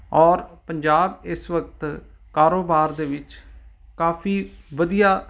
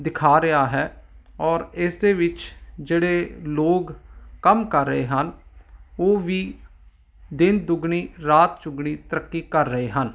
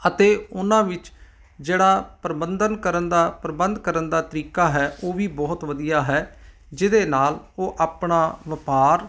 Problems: none marked